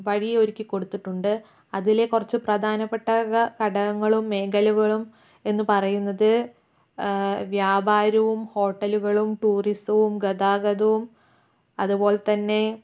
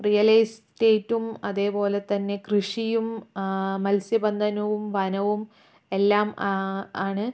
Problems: low volume